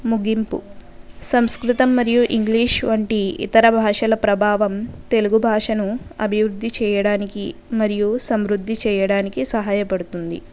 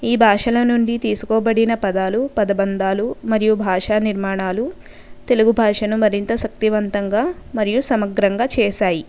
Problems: none marked